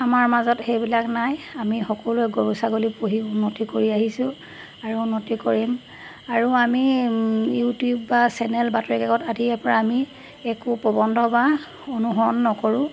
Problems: constant background noise